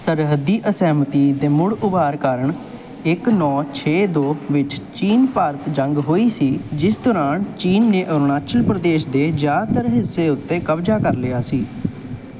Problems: none marked